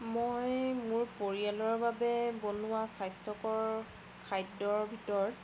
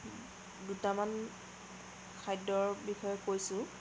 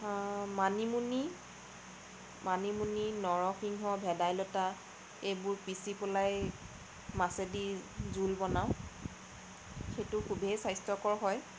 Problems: constant background noise